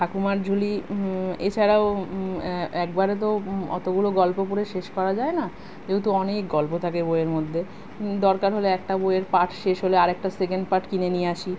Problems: none marked